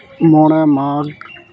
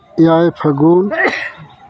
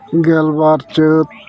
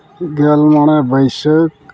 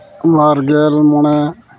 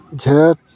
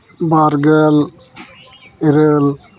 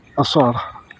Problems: continuous background conversations